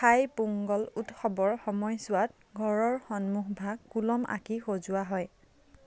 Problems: none marked